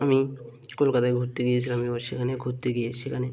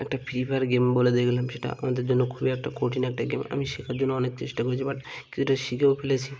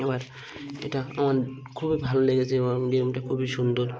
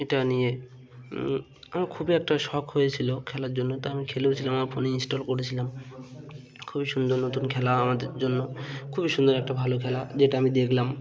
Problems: constant background noise, background conversations at intervals